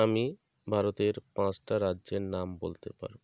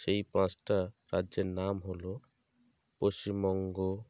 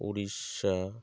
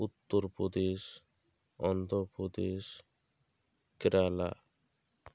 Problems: none marked